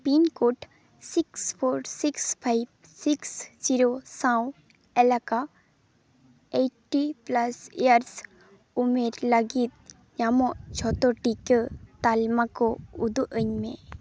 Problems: constant background noise